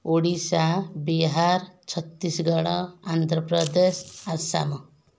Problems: none marked